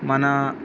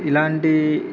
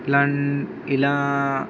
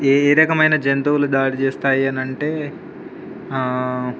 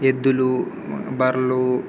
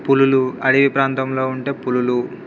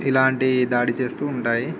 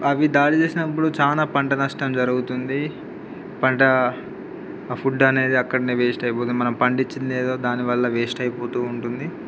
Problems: background sounds at intervals